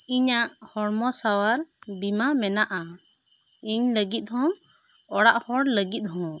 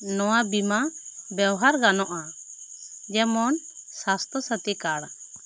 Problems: constant background noise